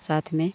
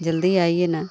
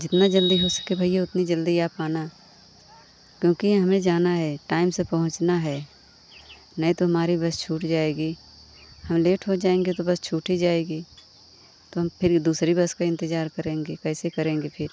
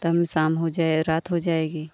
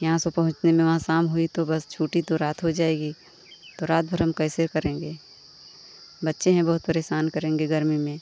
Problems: constant background noise